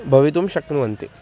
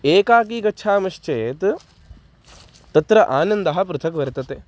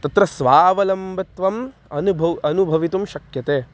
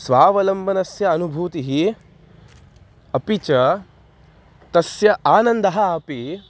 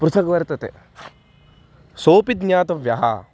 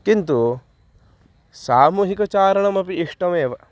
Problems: constant background noise, background conversations at intervals